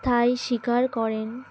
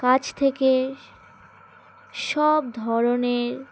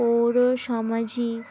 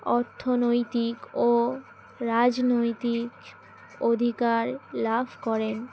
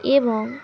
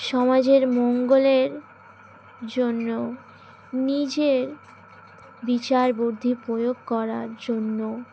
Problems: constant background noise, background conversations at intervals